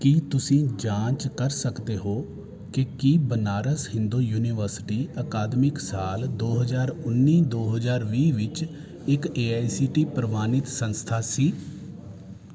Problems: none marked